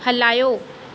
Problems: constant background noise, echo